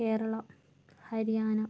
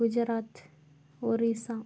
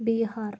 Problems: low volume